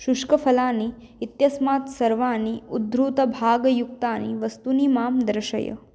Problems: none marked